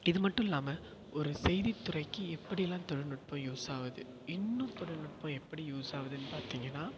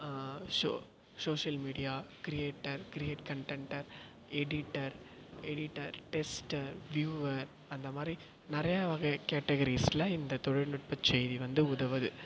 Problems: echo